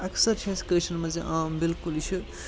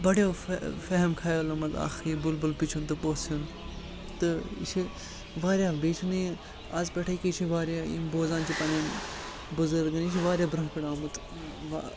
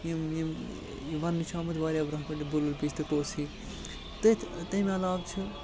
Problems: constant background noise